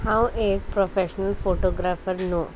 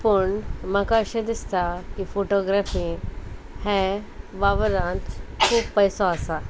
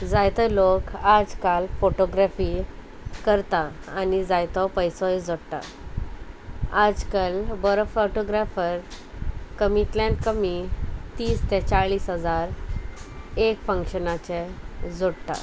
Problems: constant background noise